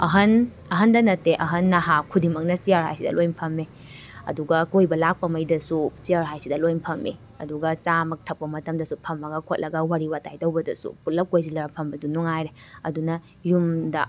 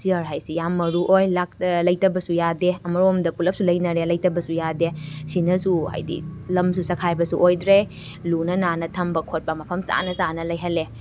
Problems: constant background noise